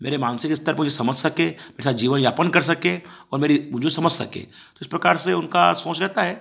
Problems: background sounds at intervals